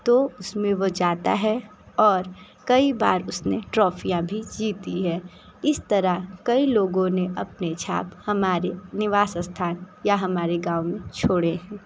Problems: constant background noise